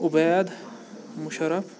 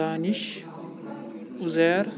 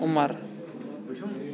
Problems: constant background noise, continuous background conversations